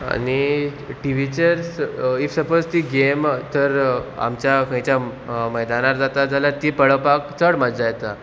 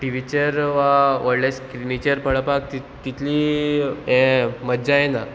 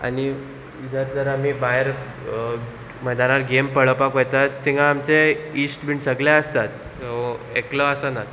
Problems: none marked